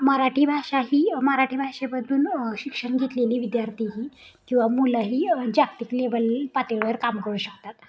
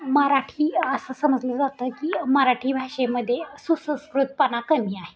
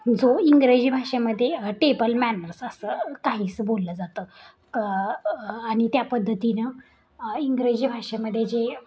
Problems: continuous background conversations